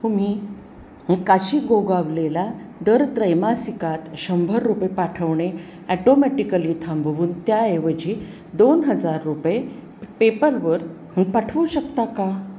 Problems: constant background noise